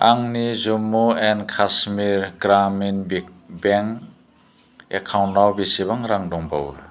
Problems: constant background noise